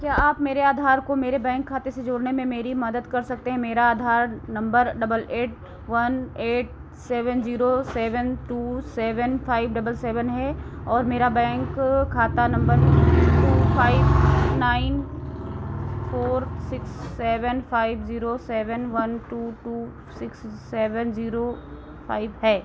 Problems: constant background noise